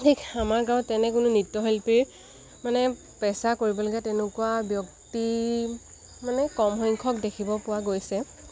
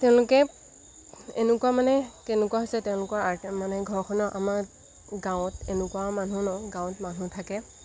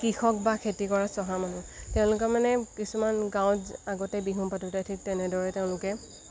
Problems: constant background noise